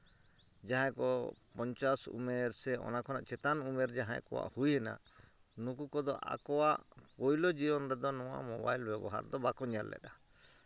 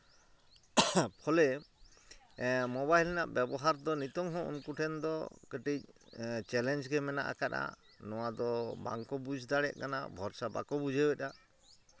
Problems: none marked